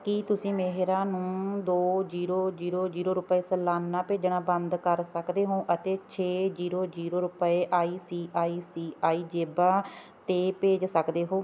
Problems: none marked